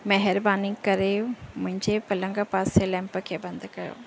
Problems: none marked